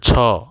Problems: background sounds at intervals